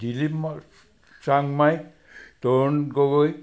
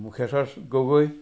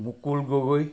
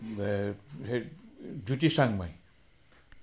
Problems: background sounds at intervals